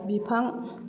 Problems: echo